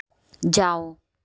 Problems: none marked